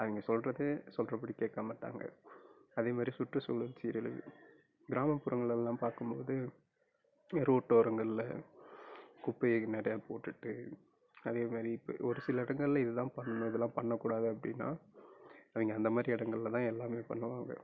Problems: low volume